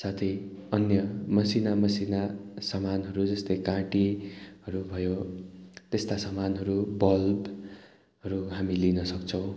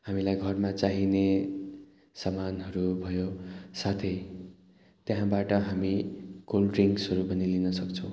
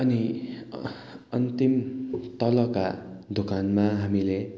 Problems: background sounds at intervals